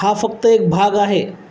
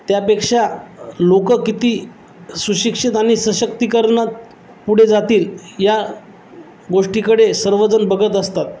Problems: none marked